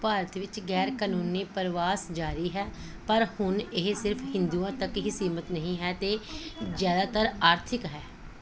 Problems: continuous background conversations